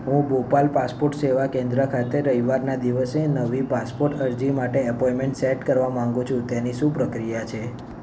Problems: none marked